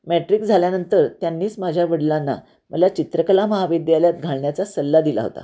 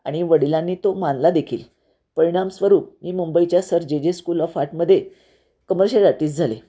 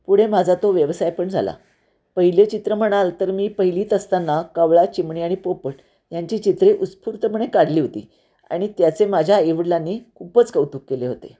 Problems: none marked